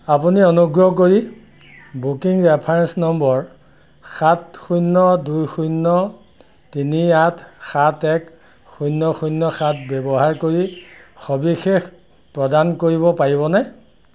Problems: background sounds at intervals